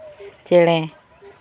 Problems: background conversations at intervals